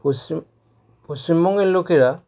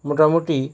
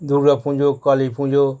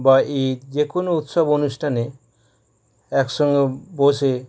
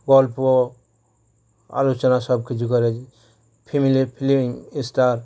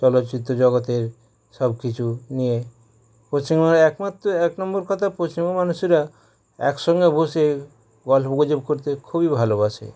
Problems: background sounds at intervals